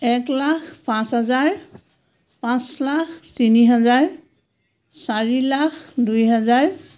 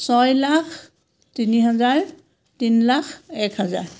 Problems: none marked